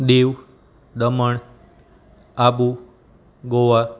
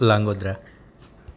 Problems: constant background noise, background conversations at intervals